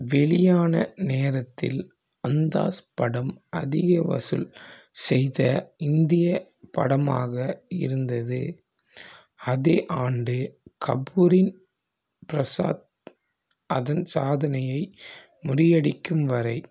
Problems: none marked